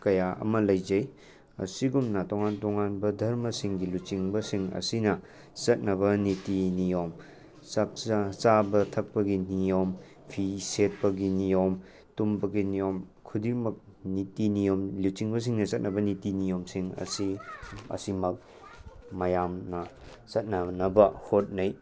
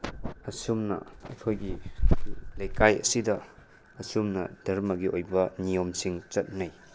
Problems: background sounds at intervals